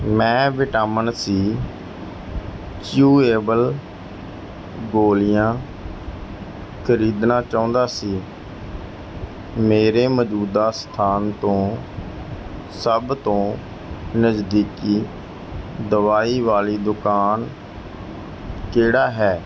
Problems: background sounds at intervals